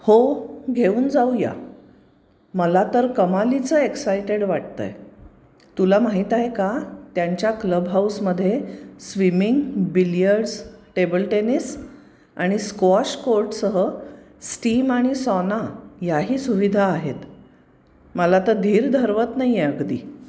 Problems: none marked